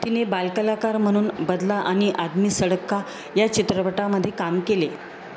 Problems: constant background noise